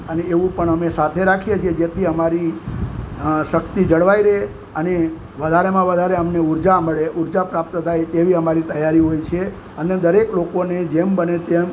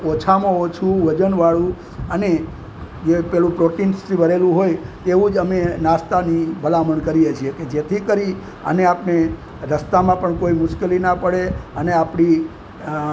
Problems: constant background noise